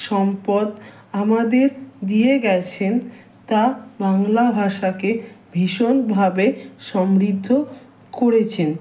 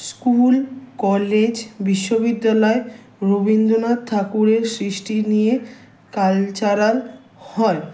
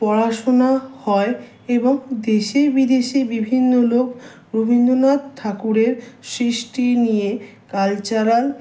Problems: background sounds at intervals